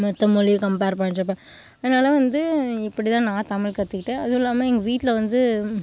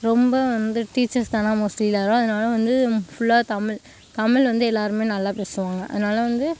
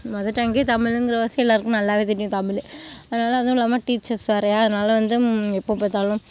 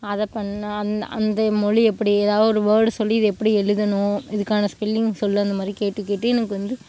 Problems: background sounds at intervals